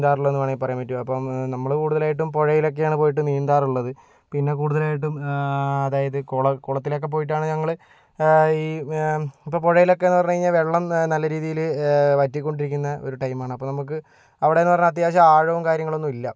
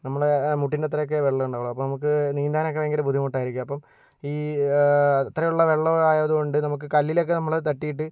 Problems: none marked